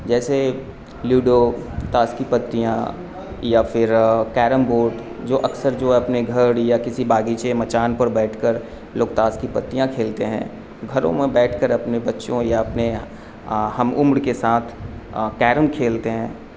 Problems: constant background noise